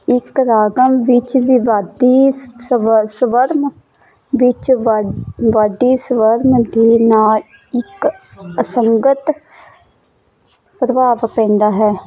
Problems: none marked